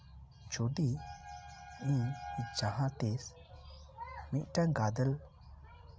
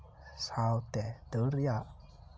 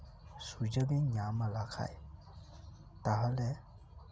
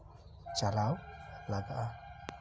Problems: background sounds at intervals